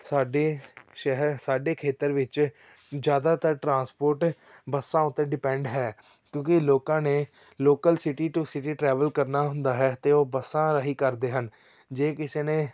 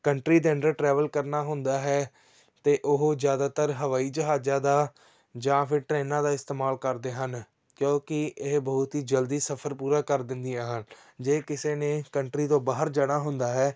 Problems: none marked